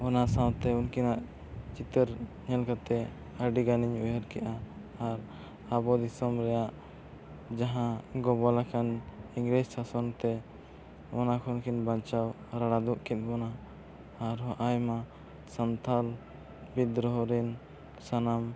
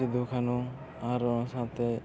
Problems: constant background noise